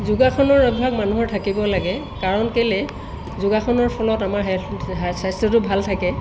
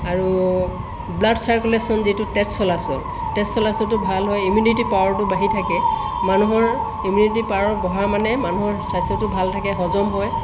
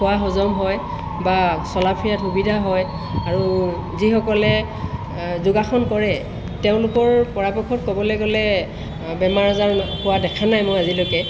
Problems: constant background noise